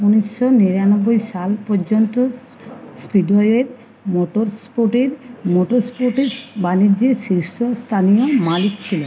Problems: none marked